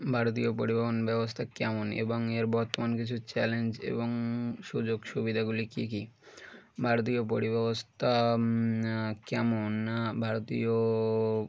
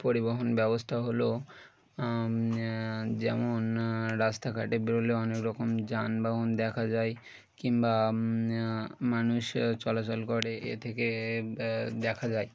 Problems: background sounds at intervals, background conversations at intervals